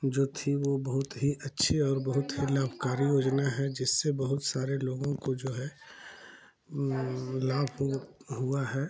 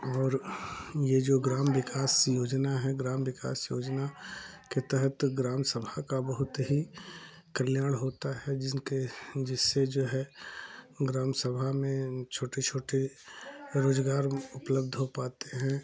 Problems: constant background noise, continuous background conversations